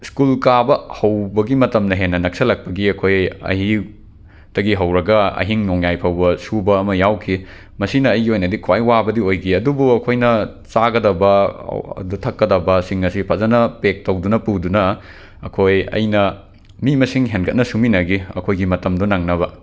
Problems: background sounds at intervals